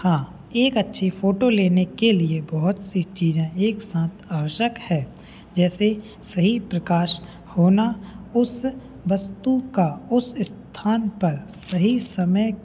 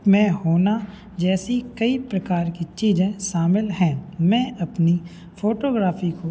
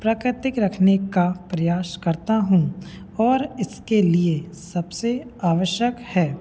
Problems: background sounds at intervals, background conversations at intervals